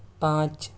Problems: none marked